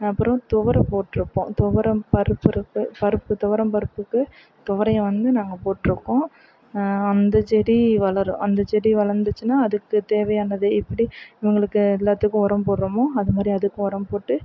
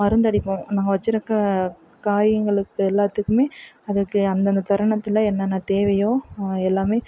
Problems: background sounds at intervals